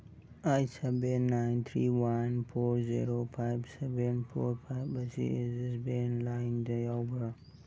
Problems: background sounds at intervals